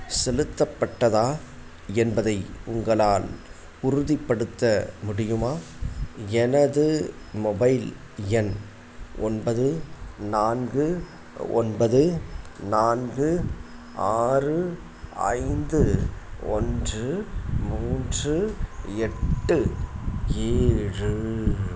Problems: constant background noise